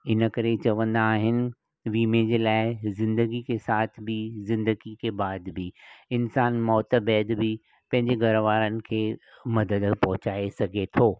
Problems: none marked